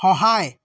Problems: background sounds at intervals